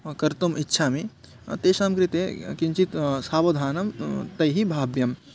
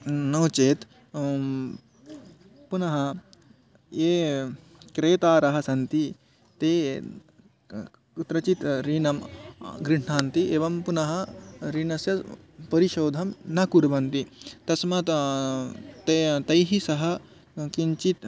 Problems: background sounds at intervals, background conversations at intervals